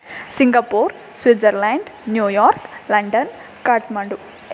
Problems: background sounds at intervals